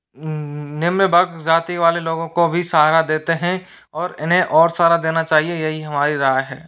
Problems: background sounds at intervals